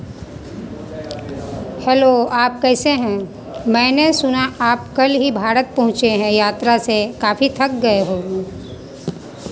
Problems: constant background noise, continuous background conversations